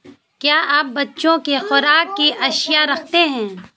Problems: constant background noise